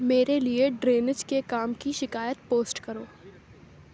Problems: none marked